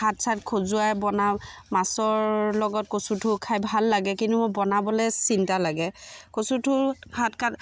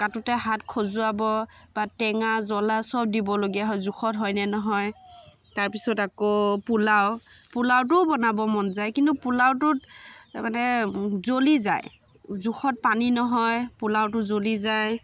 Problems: constant background noise